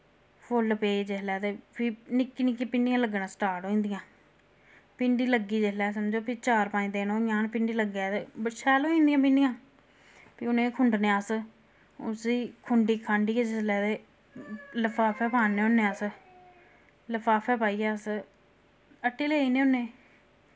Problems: constant background noise